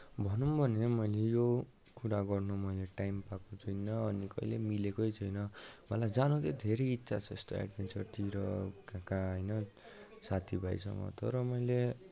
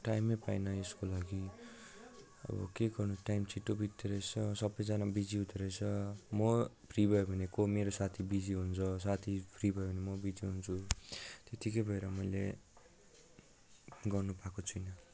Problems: low volume